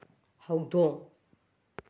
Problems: low volume